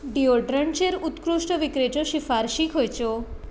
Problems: constant background noise